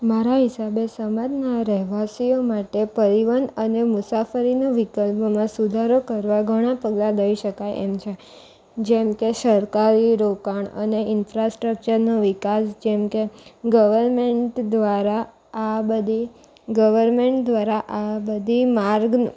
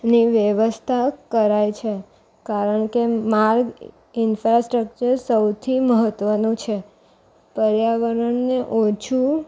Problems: none marked